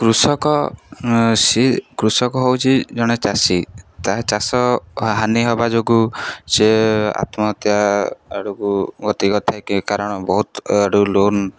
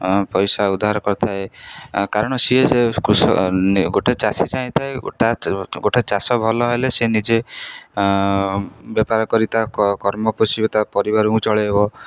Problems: none marked